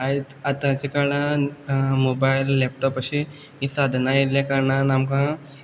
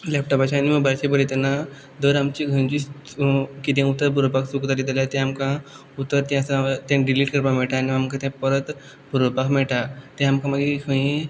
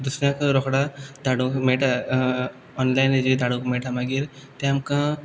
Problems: background sounds at intervals